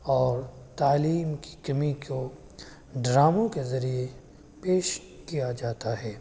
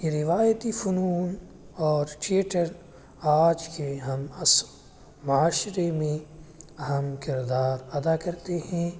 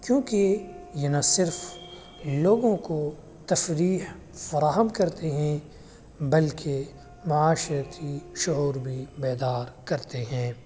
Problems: constant background noise